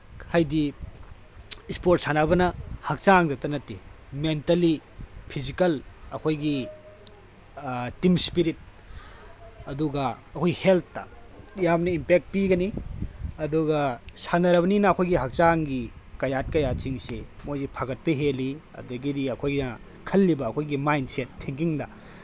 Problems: background sounds at intervals